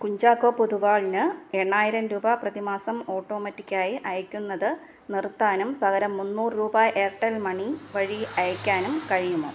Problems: none marked